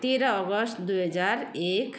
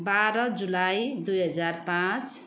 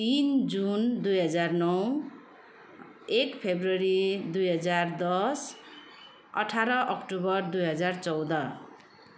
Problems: constant background noise